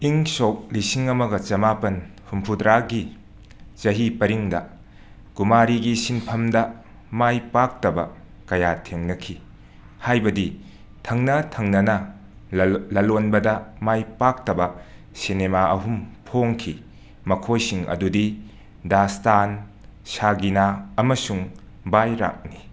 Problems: background sounds at intervals